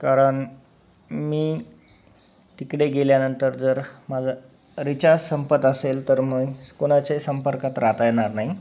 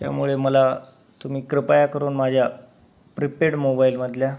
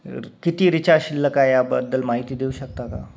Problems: none marked